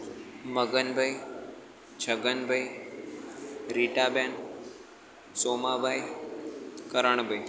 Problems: constant background noise, background conversations at intervals